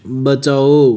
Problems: constant background noise